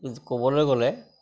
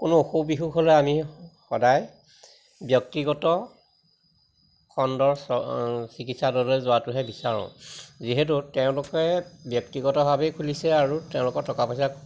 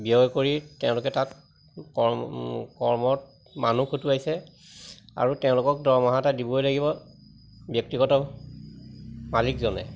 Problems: constant background noise, background conversations at intervals